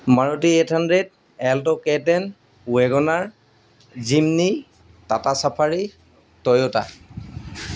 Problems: background sounds at intervals